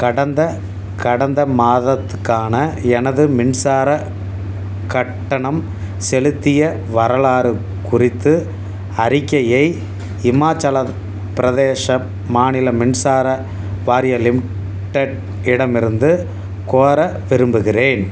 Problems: none marked